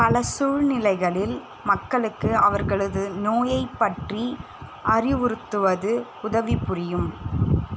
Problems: constant background noise